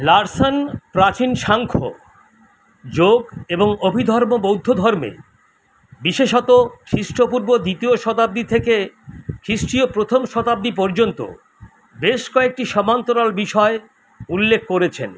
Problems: constant background noise